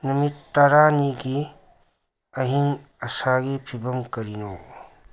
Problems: background sounds at intervals